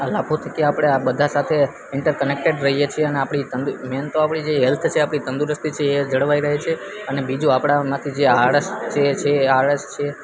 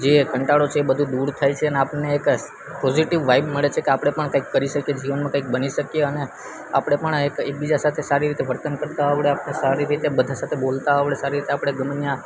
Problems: constant background noise